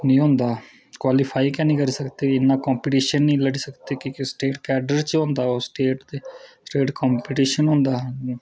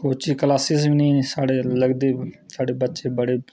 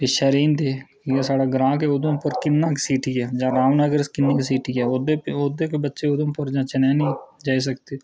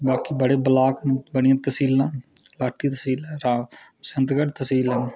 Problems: none marked